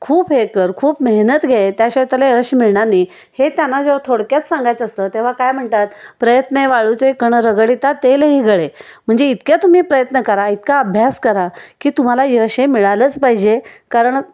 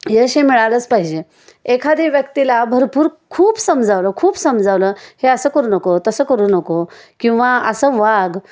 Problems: none marked